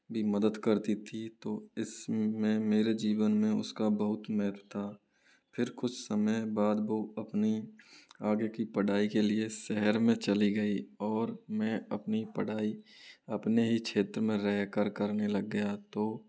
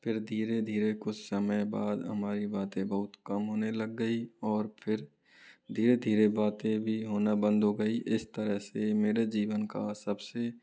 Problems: low volume